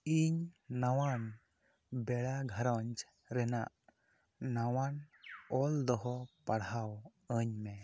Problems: none marked